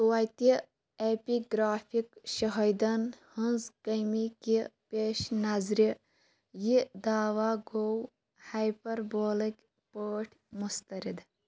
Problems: constant background noise